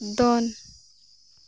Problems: constant background noise